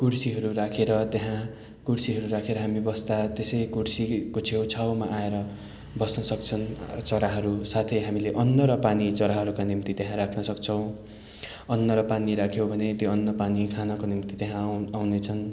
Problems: continuous background conversations